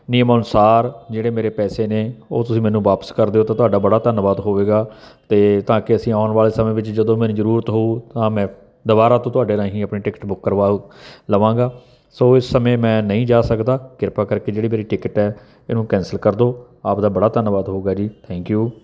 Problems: none marked